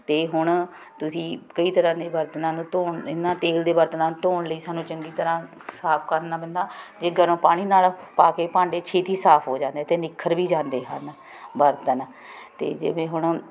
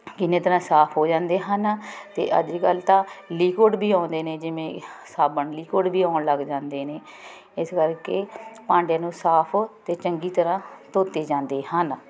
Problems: constant background noise